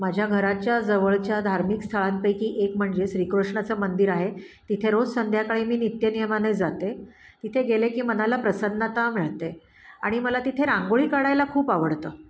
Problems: background sounds at intervals